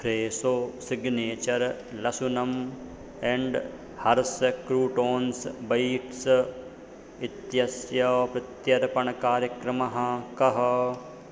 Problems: constant background noise